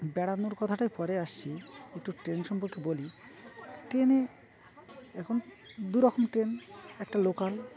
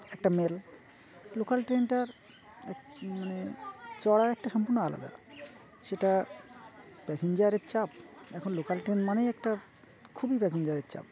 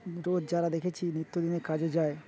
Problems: constant background noise, continuous background conversations